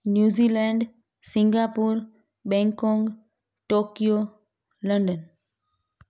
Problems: background sounds at intervals